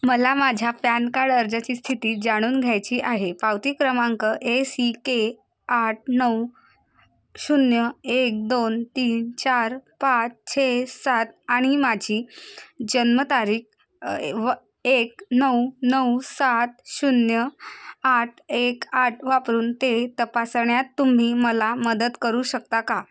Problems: constant background noise